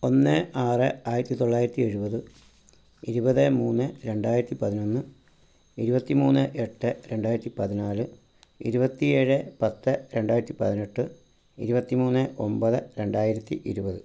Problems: low volume